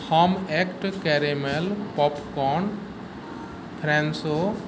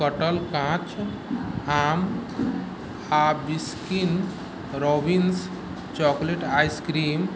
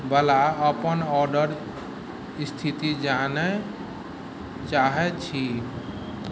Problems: none marked